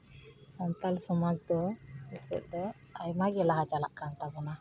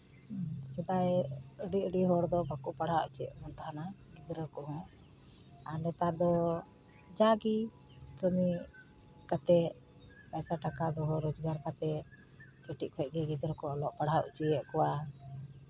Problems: constant background noise